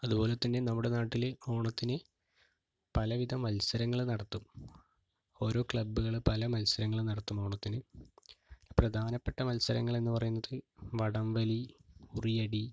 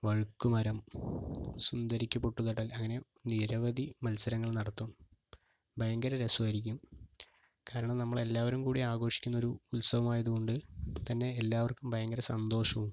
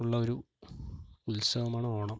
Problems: none marked